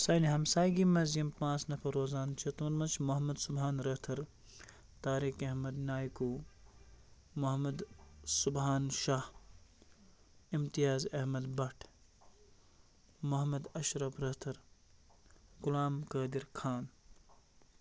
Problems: constant background noise